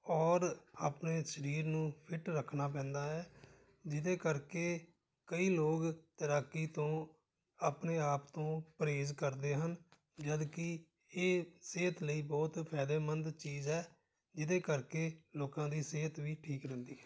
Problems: background conversations at intervals